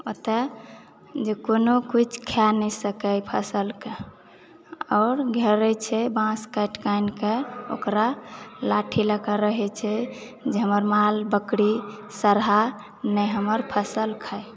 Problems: background conversations at intervals